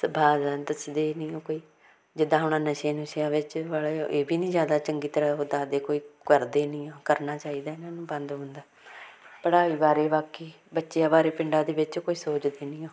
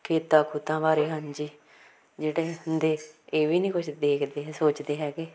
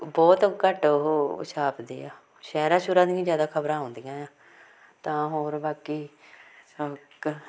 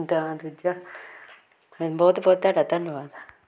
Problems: background conversations at intervals